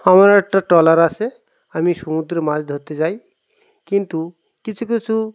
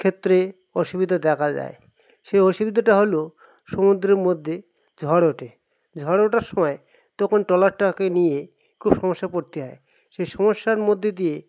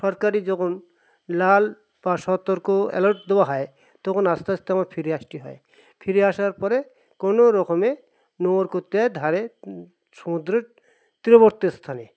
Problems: constant background noise